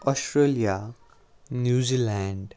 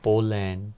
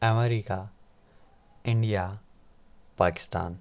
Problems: none marked